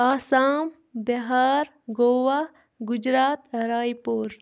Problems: background sounds at intervals